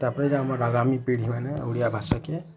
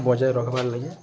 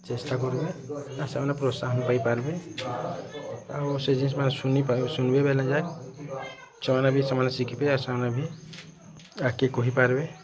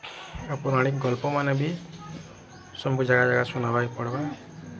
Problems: constant background noise, continuous background conversations